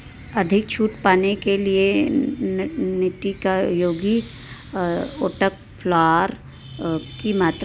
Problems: background sounds at intervals